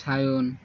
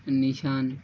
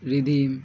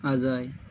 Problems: constant background noise